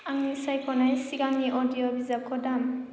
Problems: constant background noise